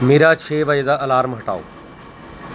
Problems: constant background noise